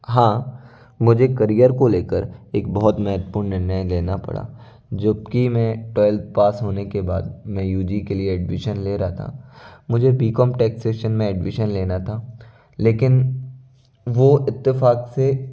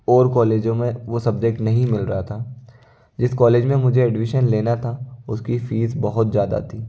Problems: constant background noise, low volume